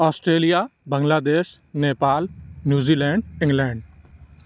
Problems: constant background noise